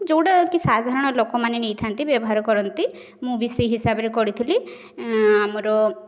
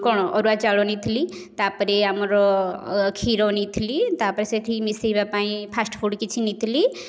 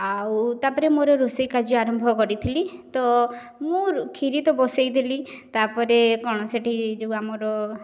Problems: none marked